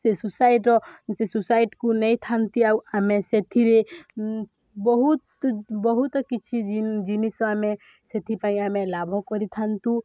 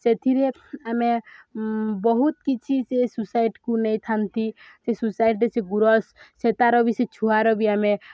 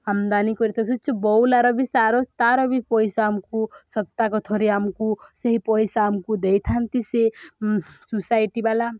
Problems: none marked